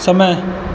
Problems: background sounds at intervals